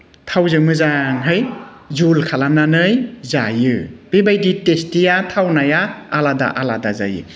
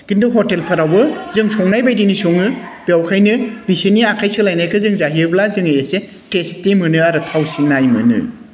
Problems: constant background noise